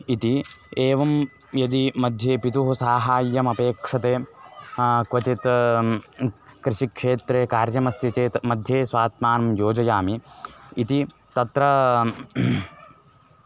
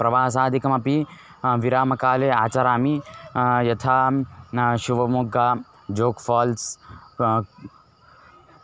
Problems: constant background noise